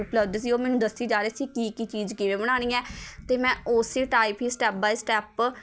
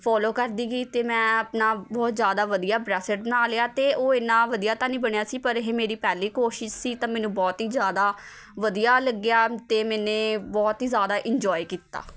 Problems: background sounds at intervals, continuous background conversations